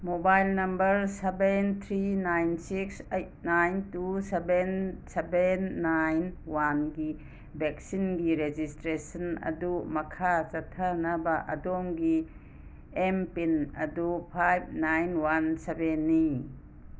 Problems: none marked